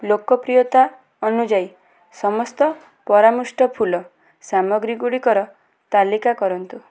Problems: background conversations at intervals